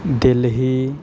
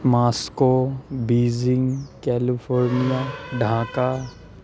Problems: low volume